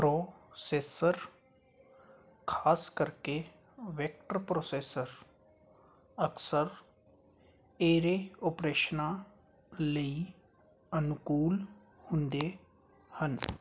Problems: constant background noise